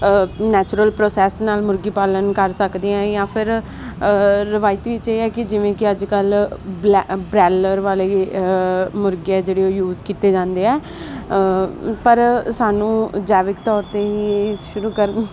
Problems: constant background noise